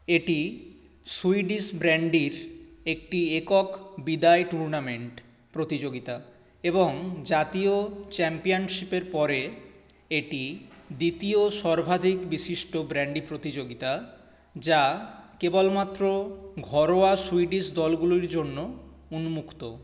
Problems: none marked